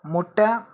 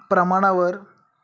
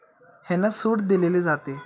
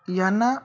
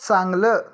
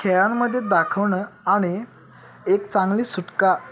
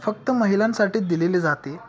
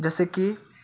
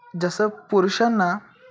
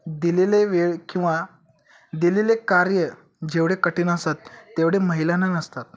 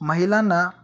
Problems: constant background noise, continuous background conversations